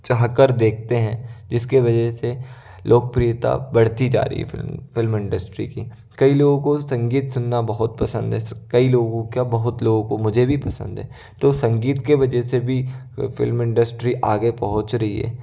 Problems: none marked